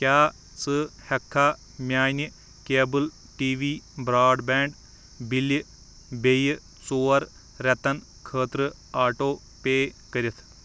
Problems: none marked